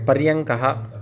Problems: background conversations at intervals